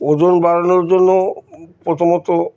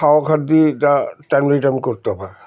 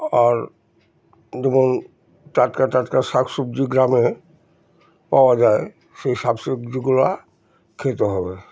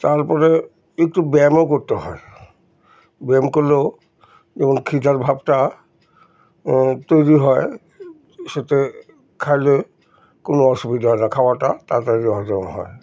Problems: background sounds at intervals